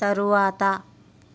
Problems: constant background noise